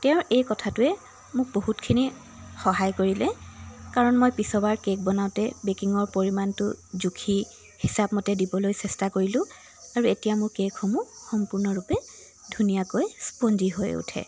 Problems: constant background noise